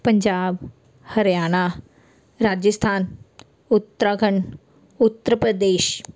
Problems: background sounds at intervals